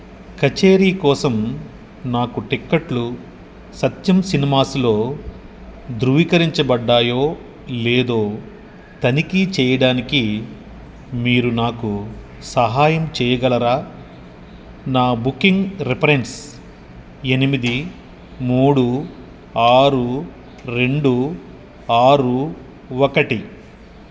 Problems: constant background noise